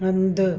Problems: none marked